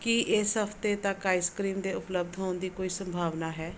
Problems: none marked